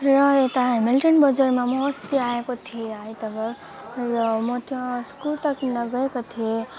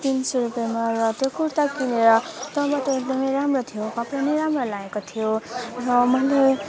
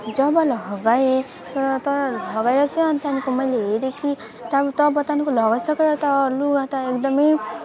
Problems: continuous background conversations